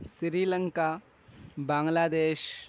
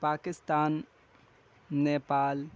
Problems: none marked